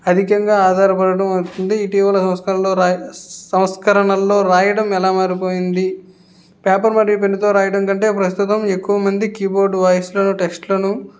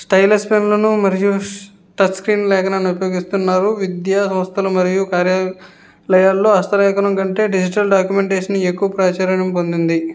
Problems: background sounds at intervals